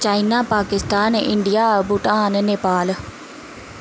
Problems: background sounds at intervals